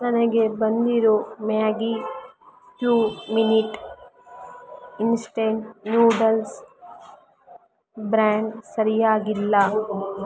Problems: background sounds at intervals, background conversations at intervals